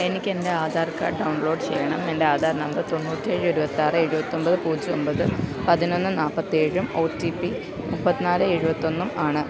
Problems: constant background noise